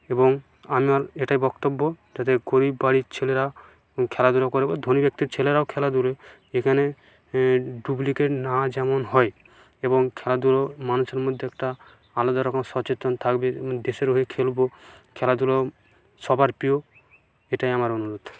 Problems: none marked